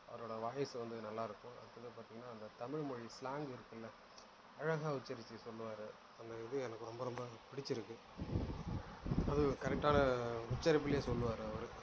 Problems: low volume